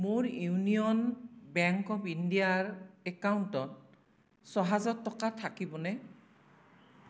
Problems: constant background noise